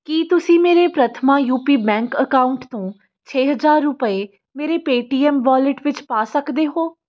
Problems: background sounds at intervals